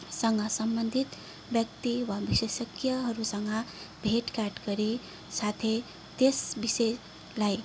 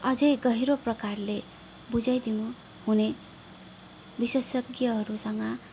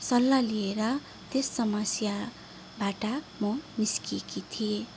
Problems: background sounds at intervals